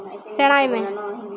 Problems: constant background noise